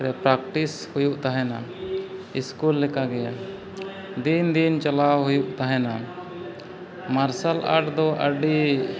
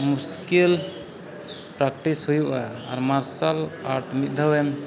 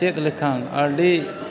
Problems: background sounds at intervals